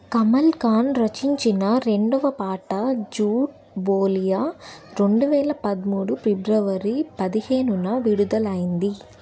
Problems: constant background noise